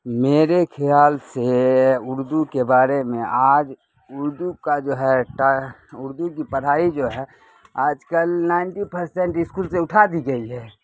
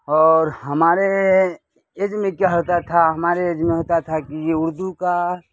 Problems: constant background noise